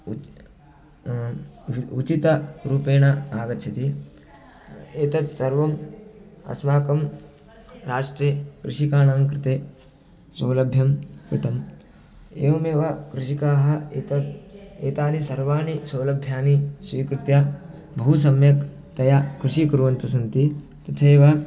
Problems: constant background noise, continuous background conversations